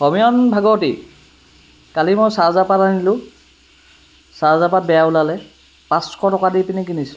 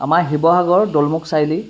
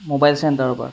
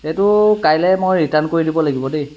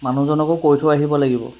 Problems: background sounds at intervals